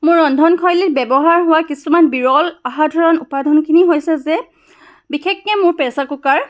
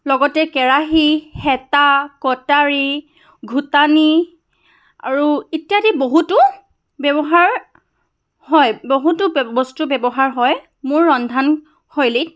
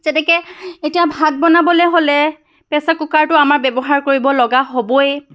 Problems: background sounds at intervals